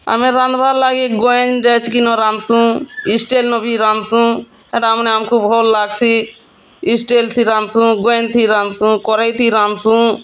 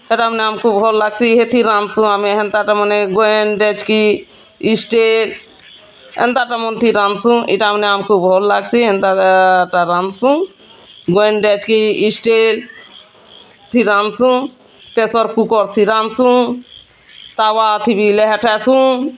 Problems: constant background noise, continuous background conversations